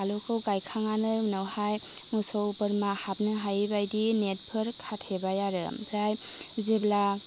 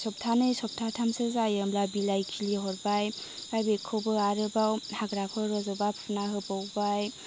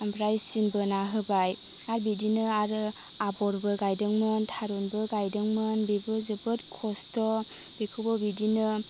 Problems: none marked